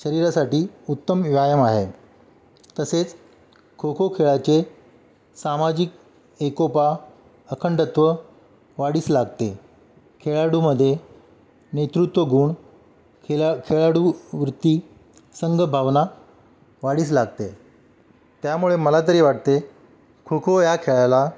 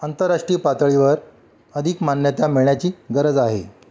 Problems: background sounds at intervals